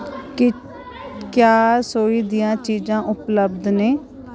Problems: none marked